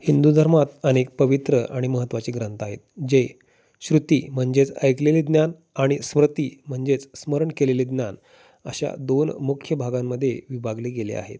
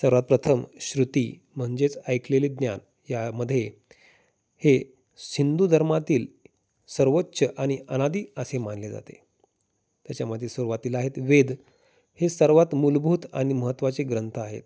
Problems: constant background noise, background conversations at intervals